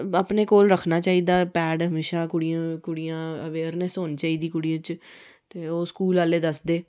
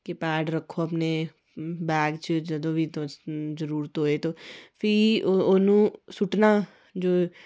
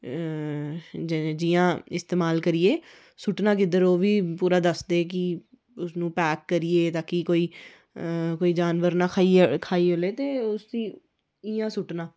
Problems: none marked